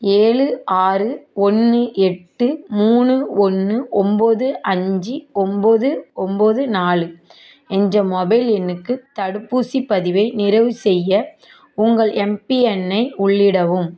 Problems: continuous background conversations